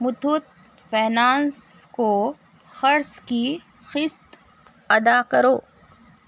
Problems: constant background noise